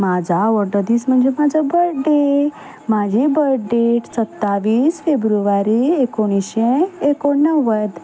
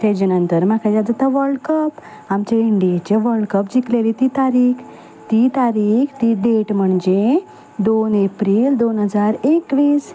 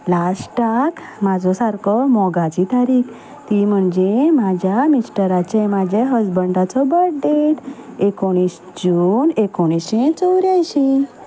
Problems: background sounds at intervals